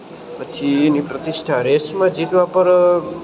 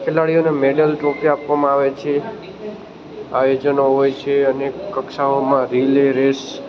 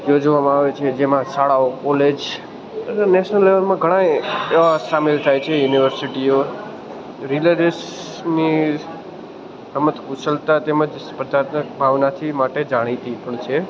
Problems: constant background noise